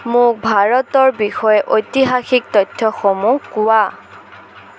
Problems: constant background noise